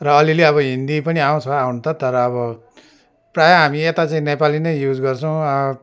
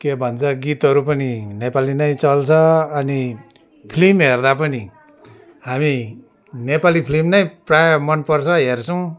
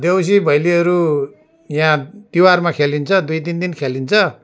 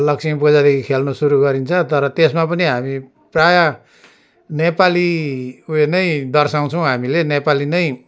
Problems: background sounds at intervals